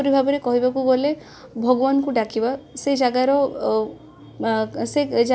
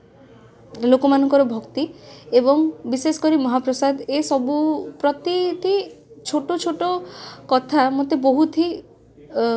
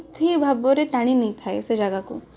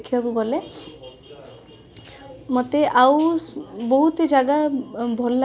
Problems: background sounds at intervals, background conversations at intervals